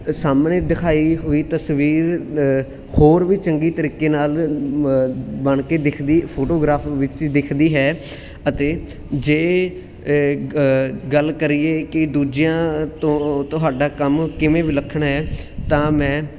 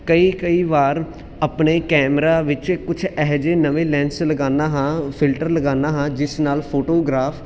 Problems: constant background noise